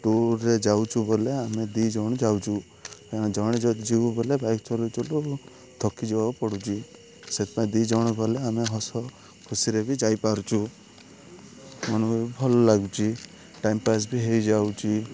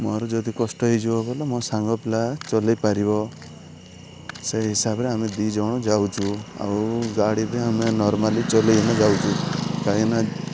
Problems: none marked